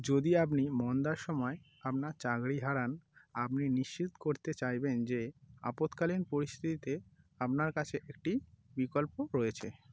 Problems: background sounds at intervals